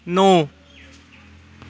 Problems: none marked